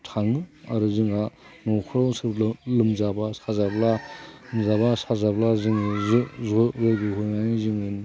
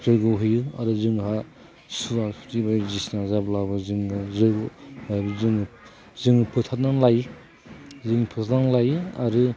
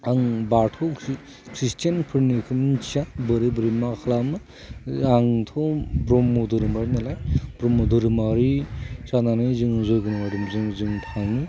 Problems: constant background noise